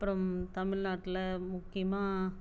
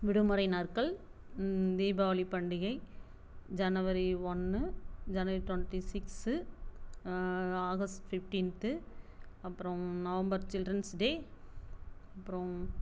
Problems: low volume